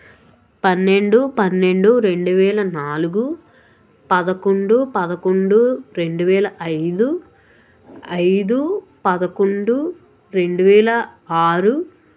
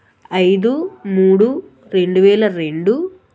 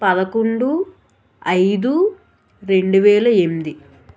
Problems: none marked